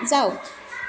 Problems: continuous background conversations